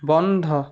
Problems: constant background noise